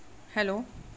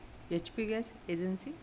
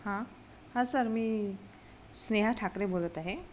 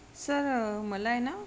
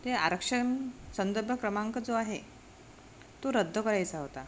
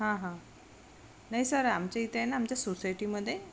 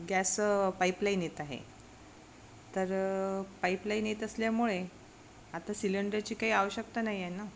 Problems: constant background noise